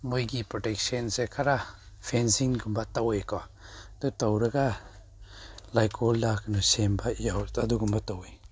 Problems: none marked